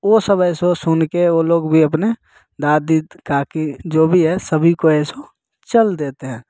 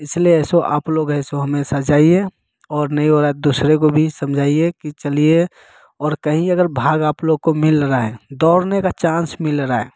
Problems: none marked